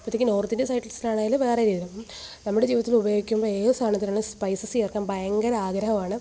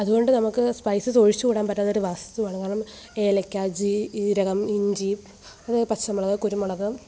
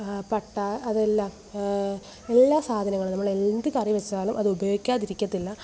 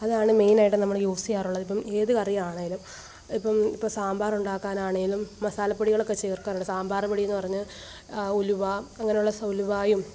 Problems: background sounds at intervals